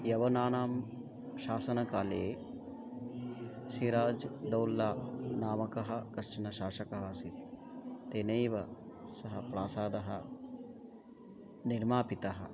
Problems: continuous background conversations